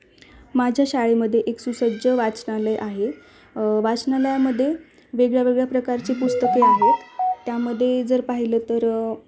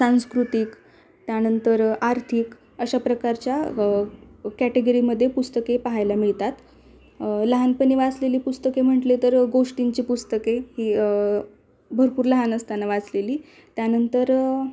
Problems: none marked